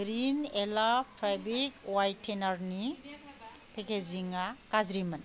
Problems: none marked